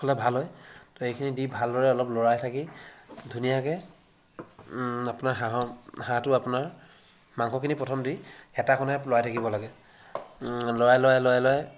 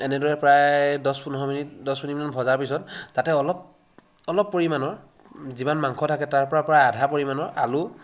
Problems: constant background noise, background conversations at intervals